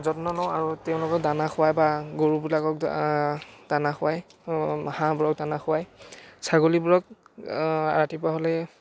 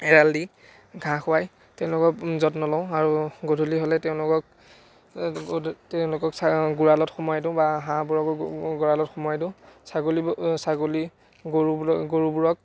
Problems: none marked